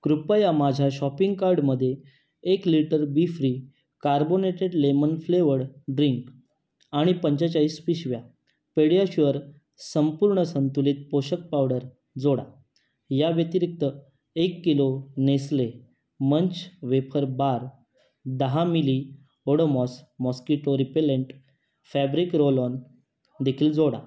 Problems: none marked